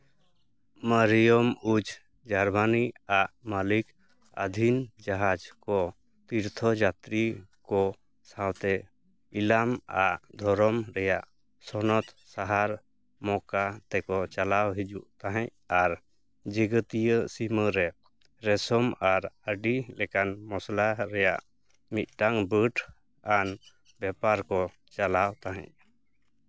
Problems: background sounds at intervals